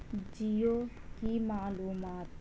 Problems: low volume